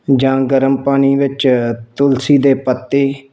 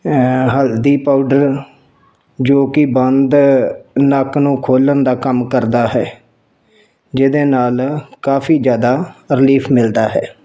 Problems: background sounds at intervals